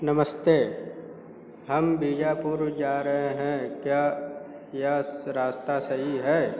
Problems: constant background noise